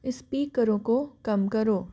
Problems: background sounds at intervals